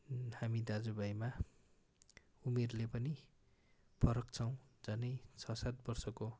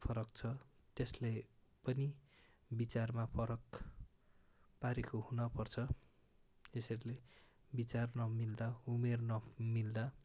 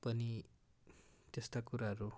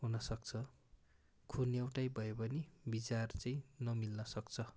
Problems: none marked